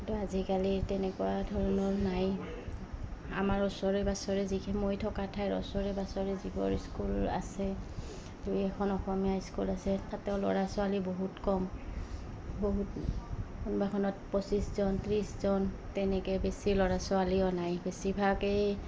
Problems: background sounds at intervals